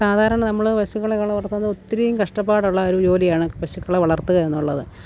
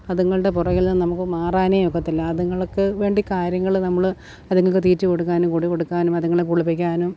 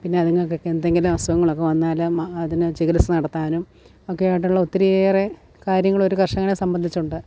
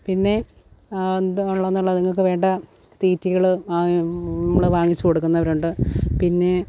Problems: none marked